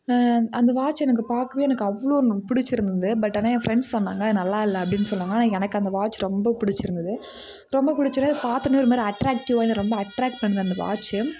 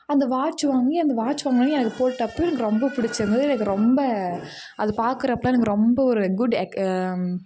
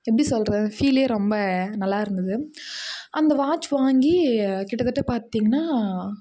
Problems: background conversations at intervals